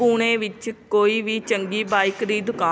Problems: background sounds at intervals